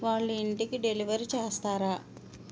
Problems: constant background noise